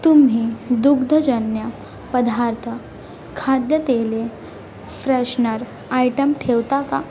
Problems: constant background noise